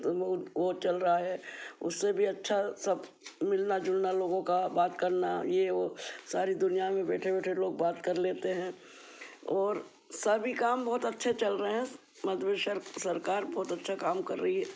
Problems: constant background noise